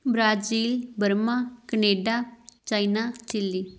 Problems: background sounds at intervals